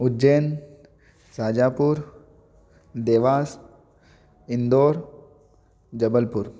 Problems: none marked